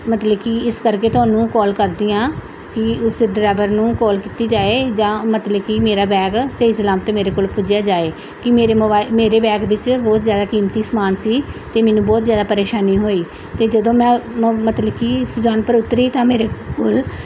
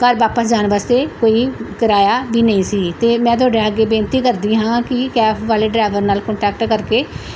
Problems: background sounds at intervals